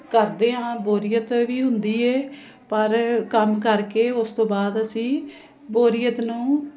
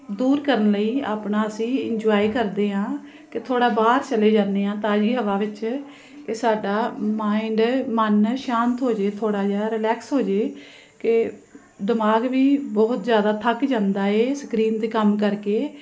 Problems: constant background noise